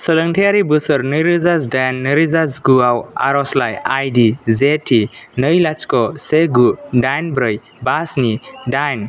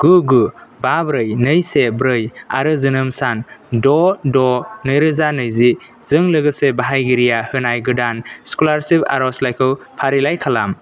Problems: none marked